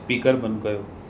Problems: constant background noise, echo